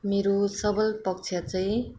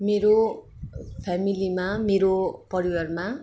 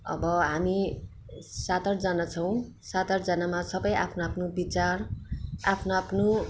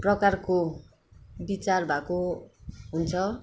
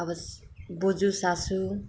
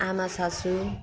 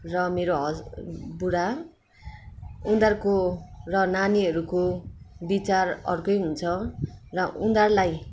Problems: constant background noise